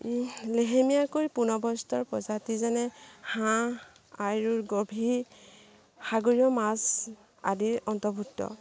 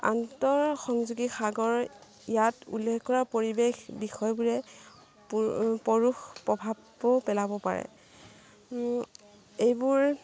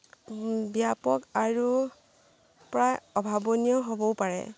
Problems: background sounds at intervals